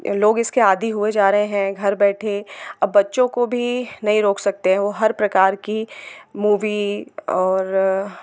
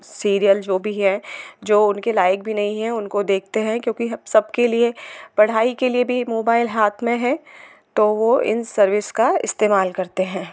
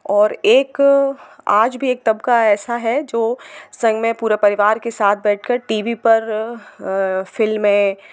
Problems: constant background noise